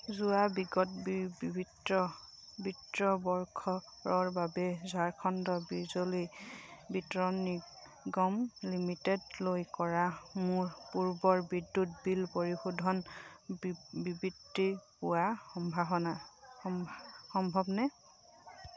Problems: none marked